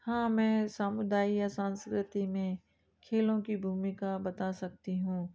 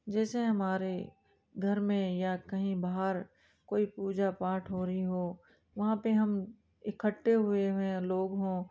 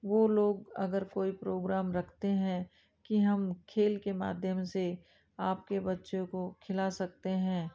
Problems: background sounds at intervals, background conversations at intervals